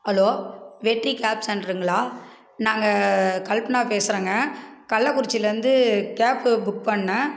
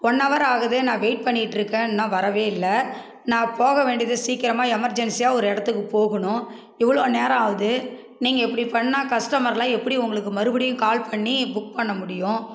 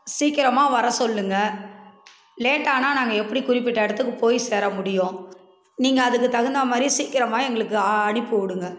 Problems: background conversations at intervals